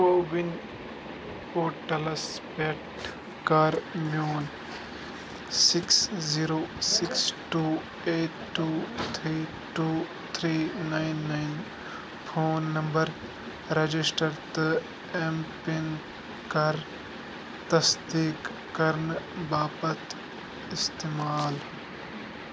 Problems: constant background noise